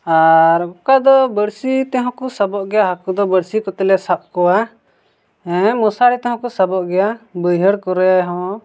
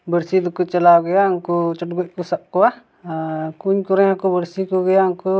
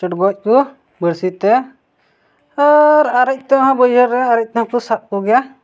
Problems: none marked